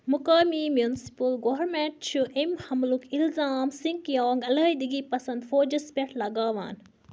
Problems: constant background noise